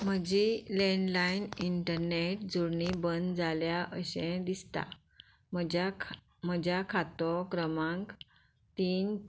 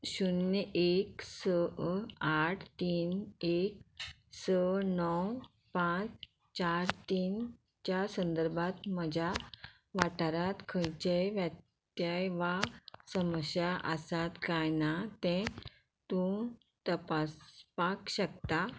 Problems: background sounds at intervals